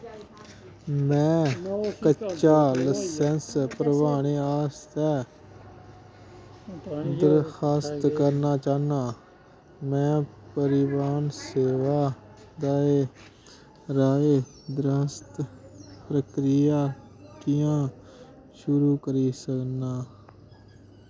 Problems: constant background noise